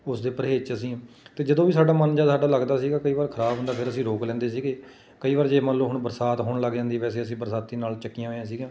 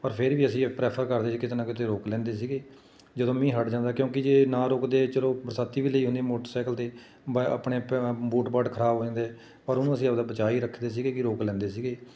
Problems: none marked